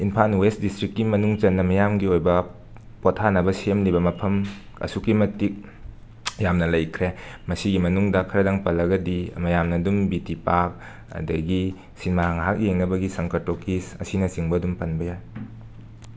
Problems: constant background noise